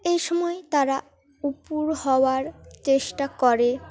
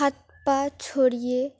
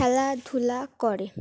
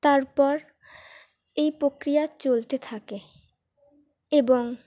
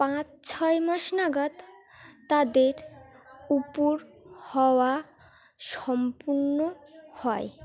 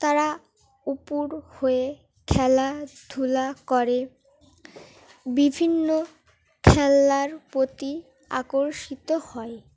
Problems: background sounds at intervals, continuous background conversations